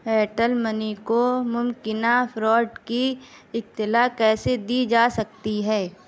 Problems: constant background noise